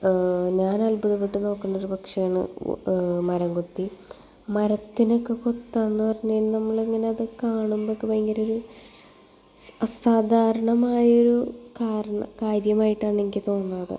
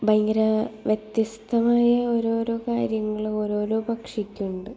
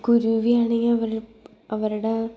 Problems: none marked